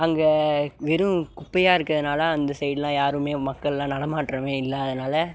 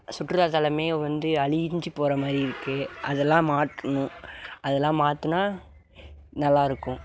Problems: background sounds at intervals